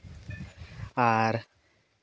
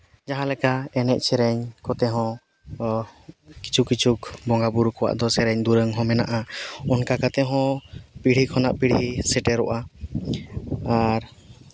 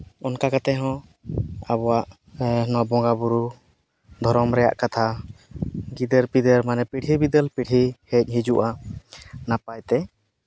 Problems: none marked